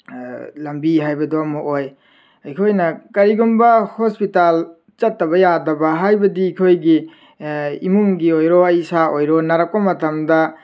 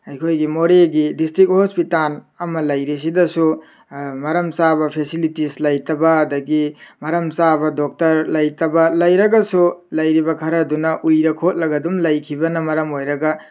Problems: none marked